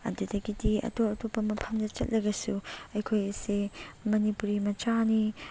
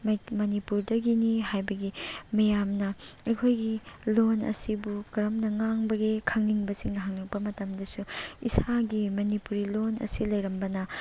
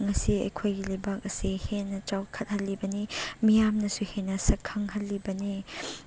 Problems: none marked